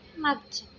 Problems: none marked